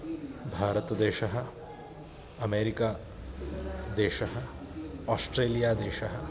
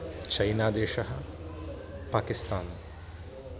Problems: constant background noise